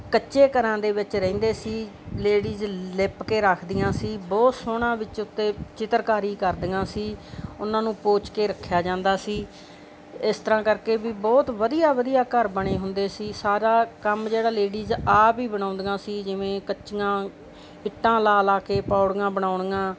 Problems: constant background noise, background conversations at intervals